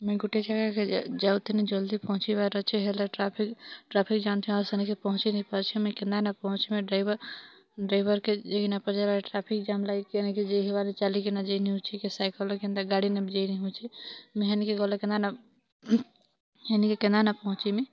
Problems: background sounds at intervals, background conversations at intervals